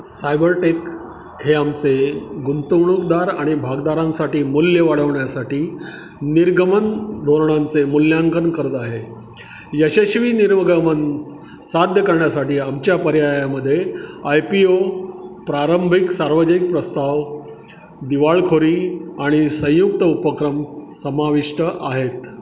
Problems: constant background noise